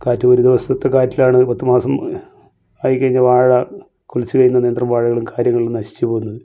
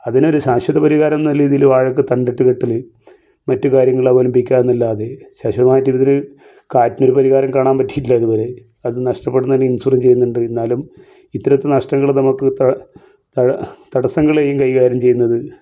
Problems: none marked